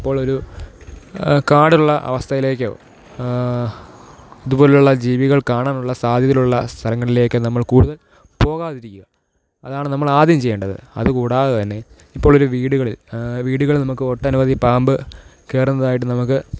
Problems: none marked